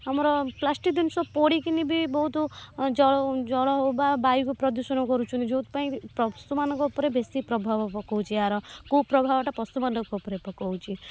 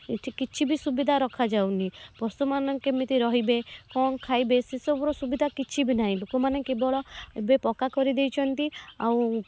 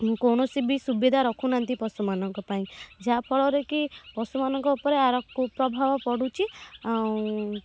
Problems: background sounds at intervals